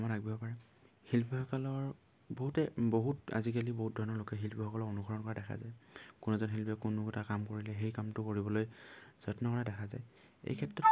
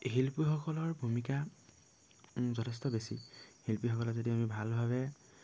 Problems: low volume